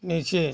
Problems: background sounds at intervals